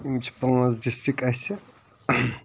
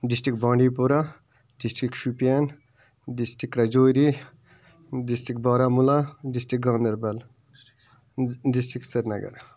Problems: background sounds at intervals, background conversations at intervals